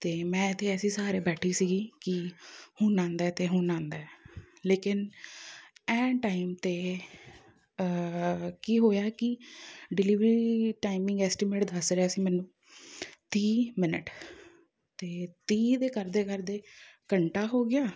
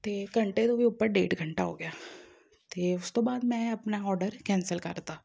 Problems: background sounds at intervals